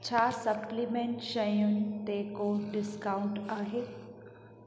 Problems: constant background noise, echo